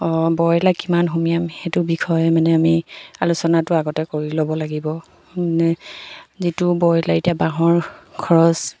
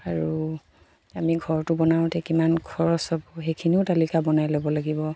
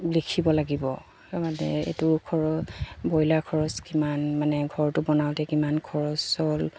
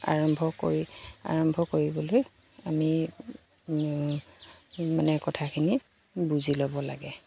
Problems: background sounds at intervals